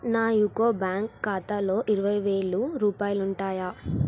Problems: none marked